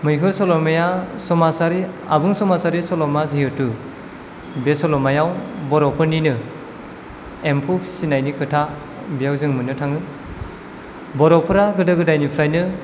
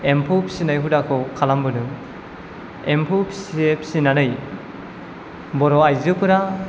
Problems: none marked